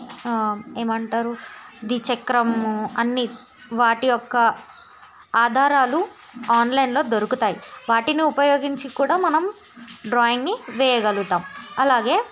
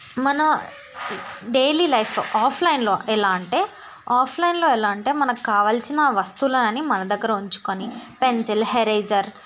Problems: none marked